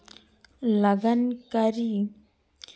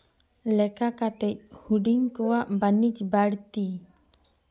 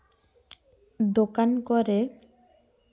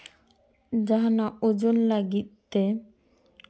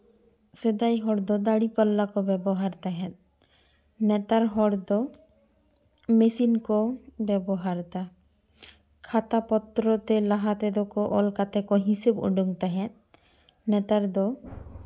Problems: none marked